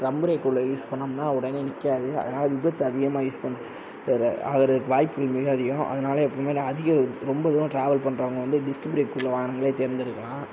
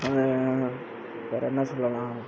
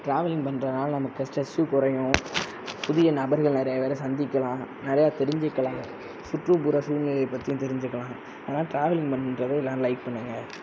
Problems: constant background noise